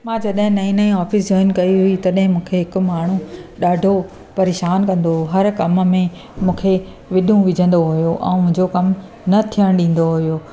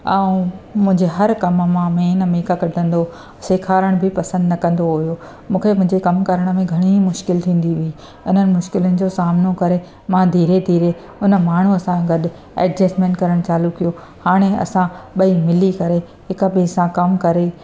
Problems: constant background noise